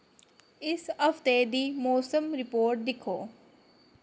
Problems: low volume